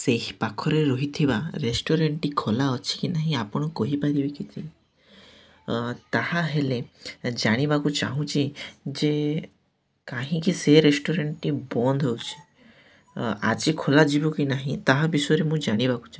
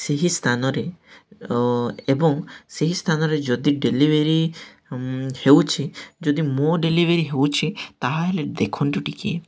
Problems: none marked